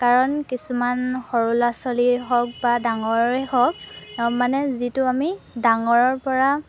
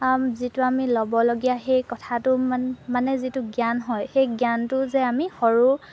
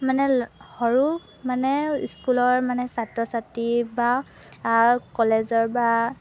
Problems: background sounds at intervals